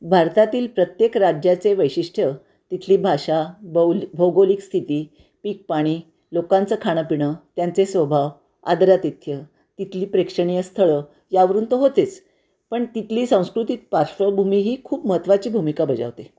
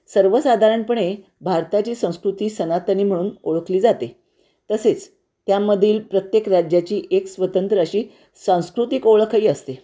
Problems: constant background noise